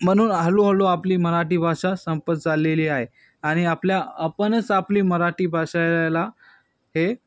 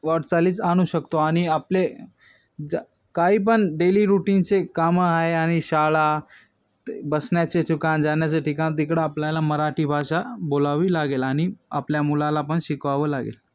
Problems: constant background noise, background conversations at intervals